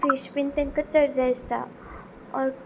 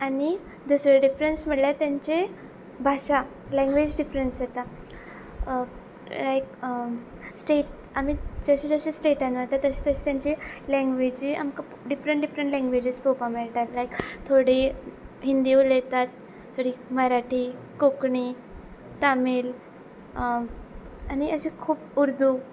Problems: background sounds at intervals